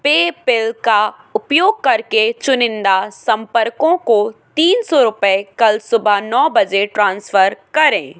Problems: constant background noise